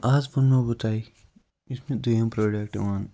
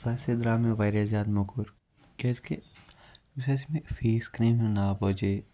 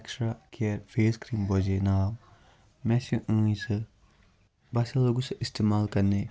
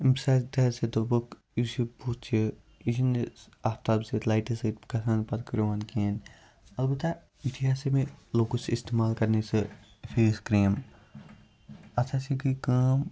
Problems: low volume